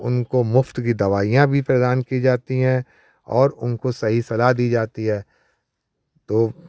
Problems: none marked